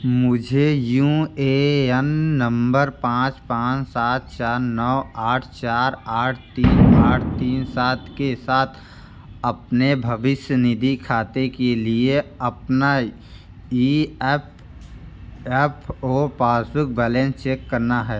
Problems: background sounds at intervals